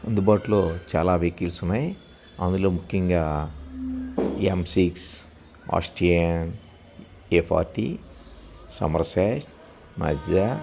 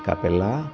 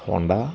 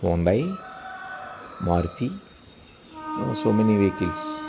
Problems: constant background noise